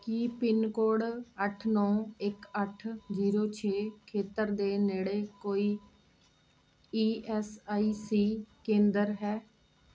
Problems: none marked